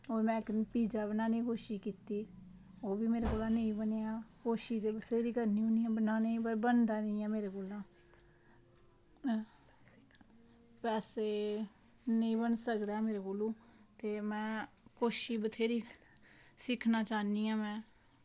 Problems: none marked